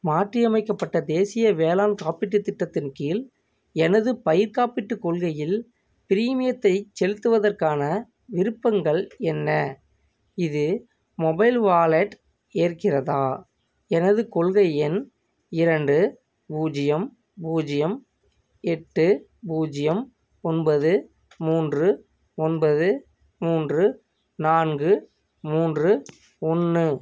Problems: none marked